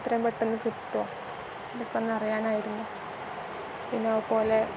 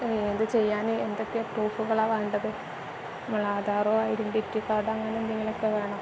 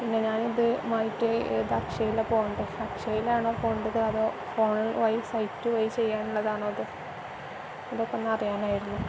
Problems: constant background noise